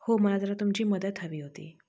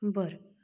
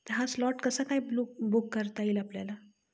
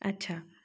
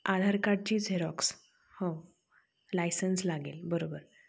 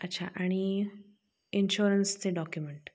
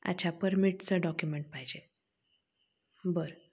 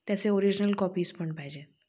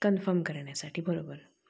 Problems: none marked